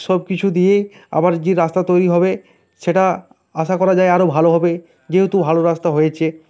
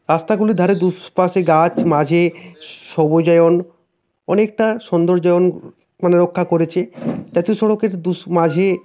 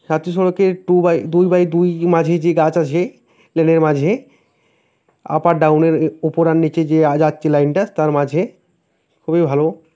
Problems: constant background noise